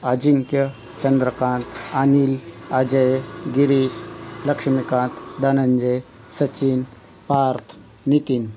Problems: none marked